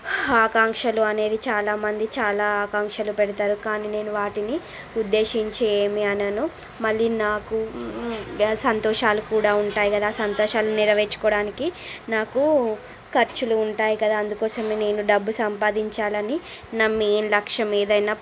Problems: constant background noise